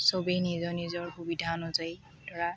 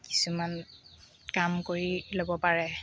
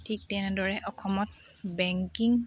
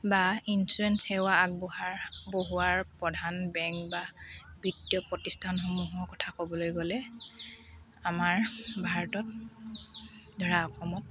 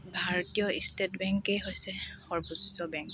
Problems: background sounds at intervals, background conversations at intervals, low volume